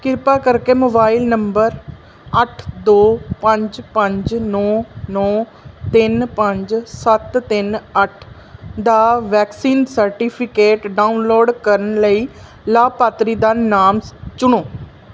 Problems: background sounds at intervals